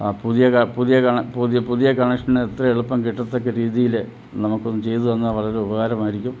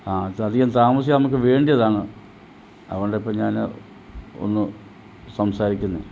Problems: background sounds at intervals, low volume